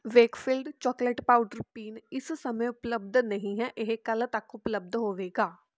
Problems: background conversations at intervals